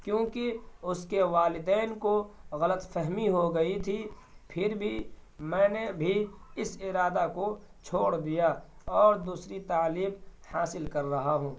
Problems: constant background noise